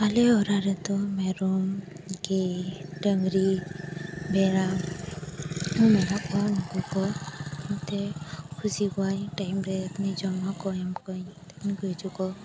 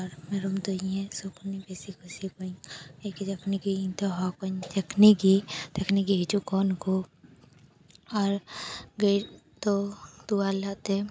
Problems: constant background noise